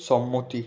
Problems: continuous background conversations